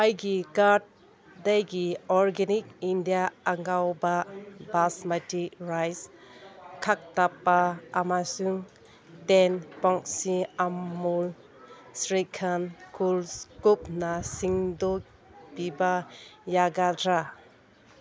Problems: background conversations at intervals